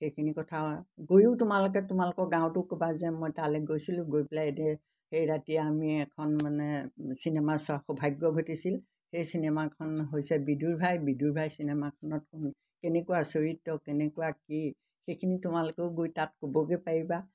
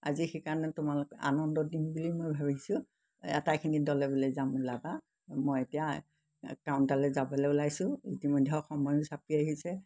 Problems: background sounds at intervals